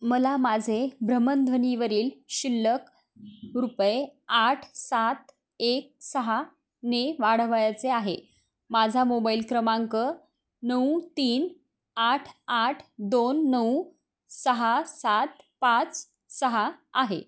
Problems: constant background noise